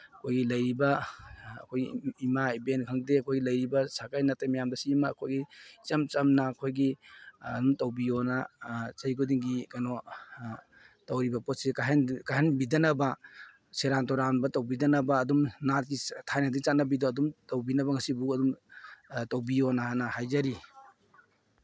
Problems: none marked